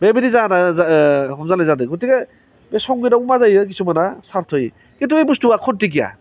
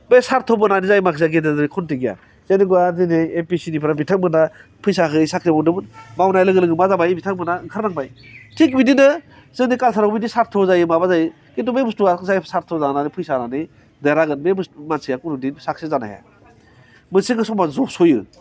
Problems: none marked